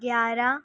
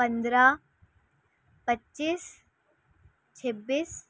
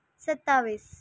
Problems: constant background noise